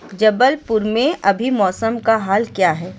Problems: none marked